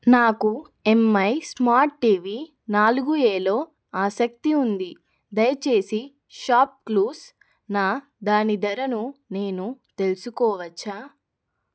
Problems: none marked